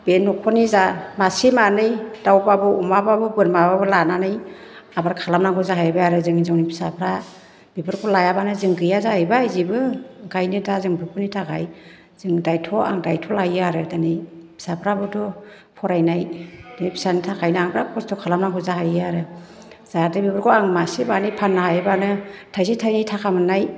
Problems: low volume